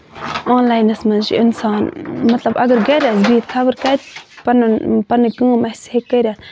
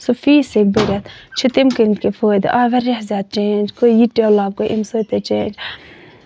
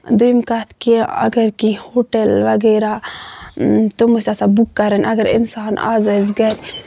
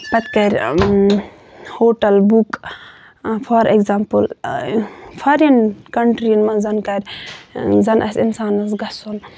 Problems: constant background noise